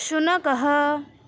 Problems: constant background noise